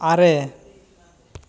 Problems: none marked